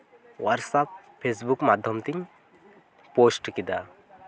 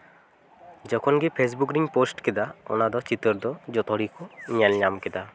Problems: constant background noise